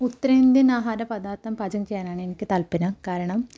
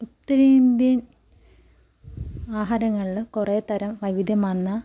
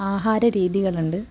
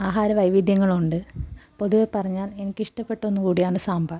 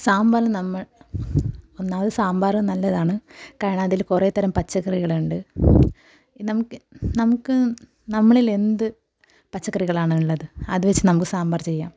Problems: background sounds at intervals